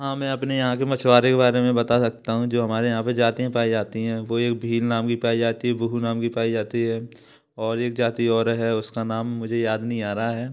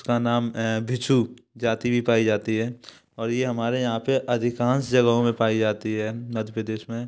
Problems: background sounds at intervals